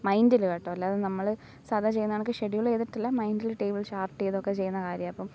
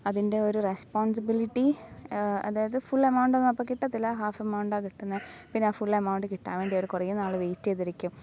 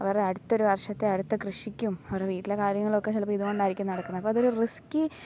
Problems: none marked